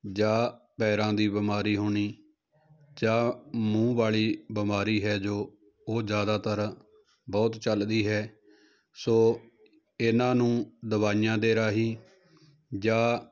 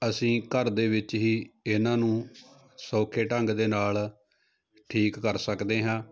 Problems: none marked